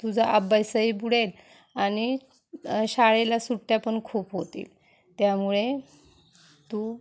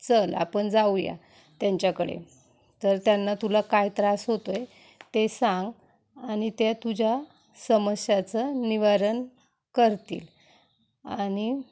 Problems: background sounds at intervals